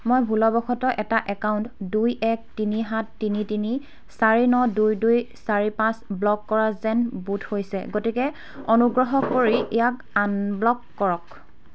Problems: background sounds at intervals